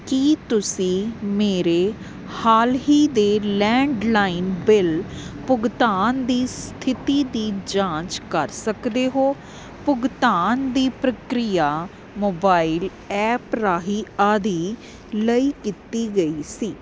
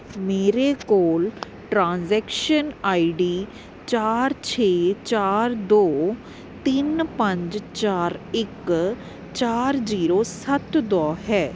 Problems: constant background noise